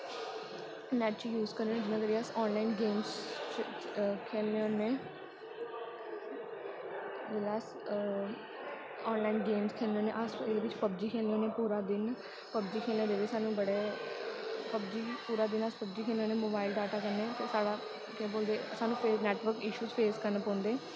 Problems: background sounds at intervals, low volume